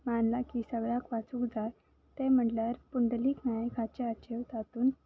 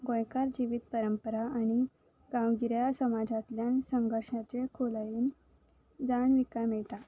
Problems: background sounds at intervals